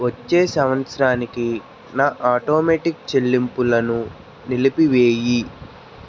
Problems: constant background noise